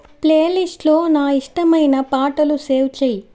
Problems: none marked